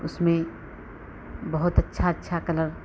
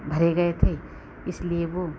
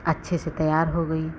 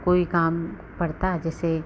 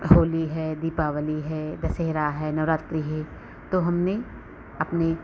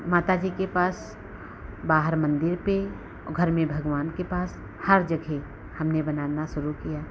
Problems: background sounds at intervals